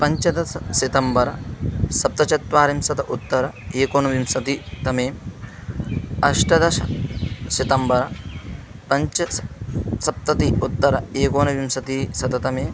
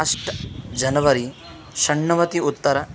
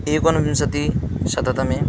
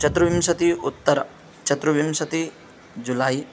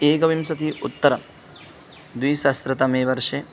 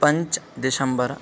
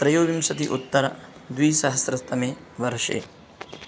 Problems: none marked